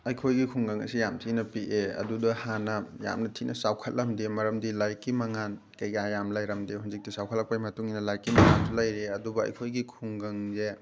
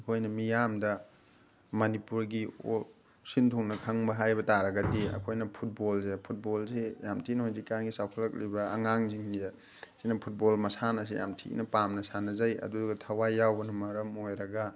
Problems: background sounds at intervals